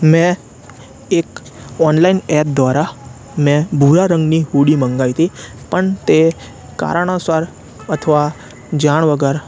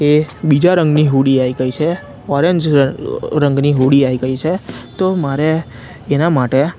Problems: constant background noise